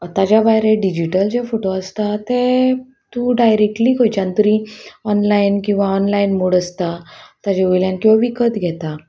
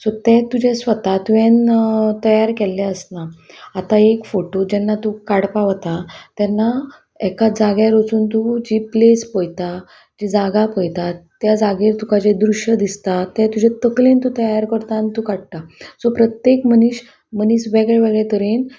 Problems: constant background noise, background conversations at intervals